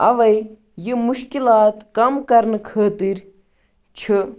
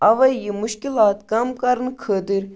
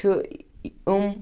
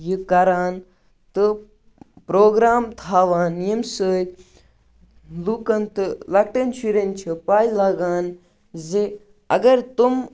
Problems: background sounds at intervals